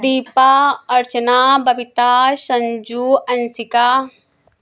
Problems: constant background noise